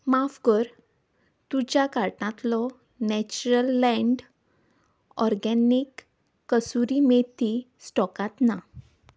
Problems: none marked